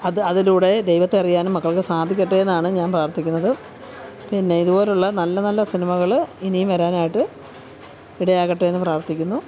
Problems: constant background noise, background conversations at intervals